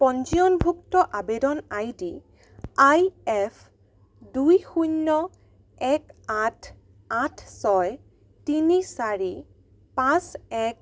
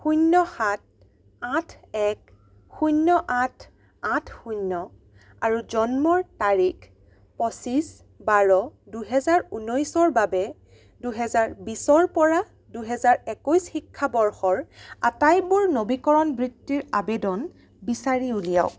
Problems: none marked